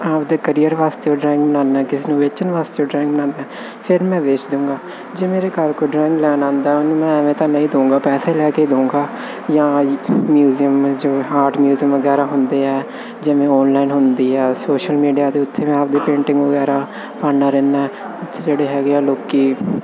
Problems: constant background noise, background conversations at intervals